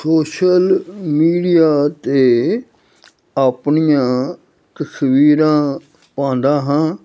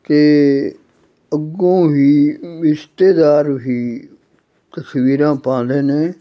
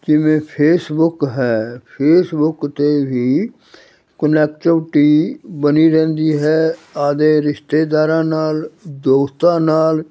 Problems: none marked